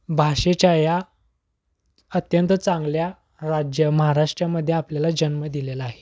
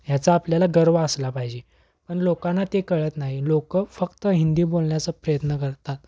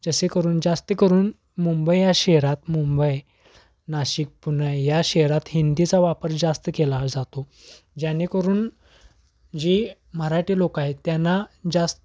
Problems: constant background noise